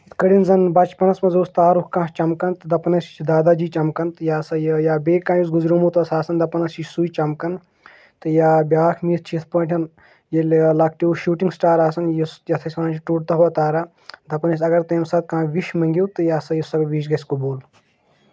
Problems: none marked